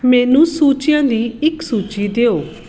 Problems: background sounds at intervals